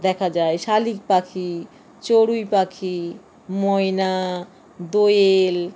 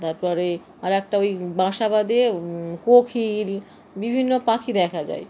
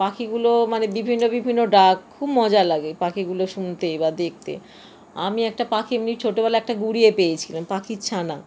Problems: constant background noise